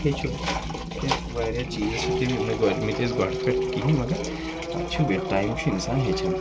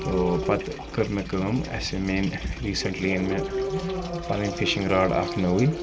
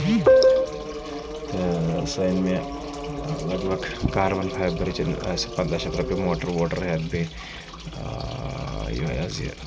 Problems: constant background noise, low volume